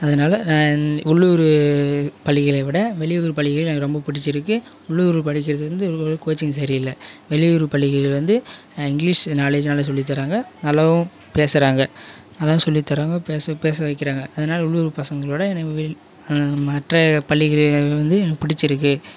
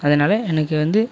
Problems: background sounds at intervals